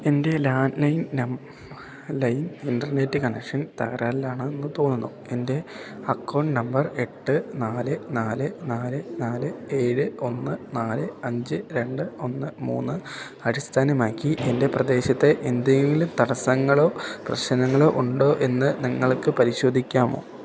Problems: background sounds at intervals